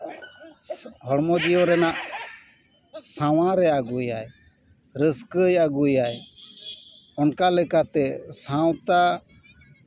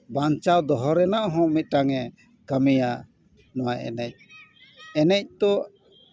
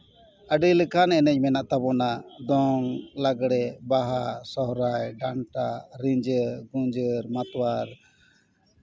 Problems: background sounds at intervals